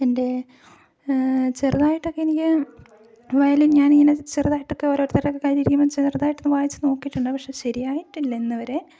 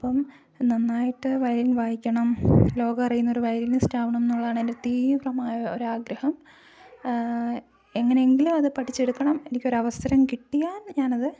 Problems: low volume